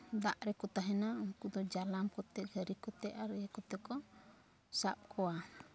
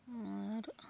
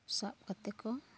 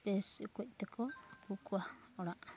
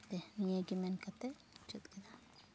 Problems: low volume